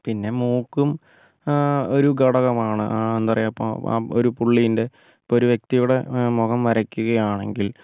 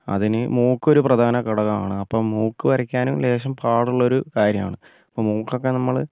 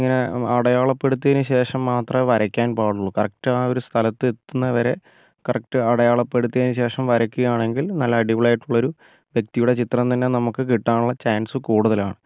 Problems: none marked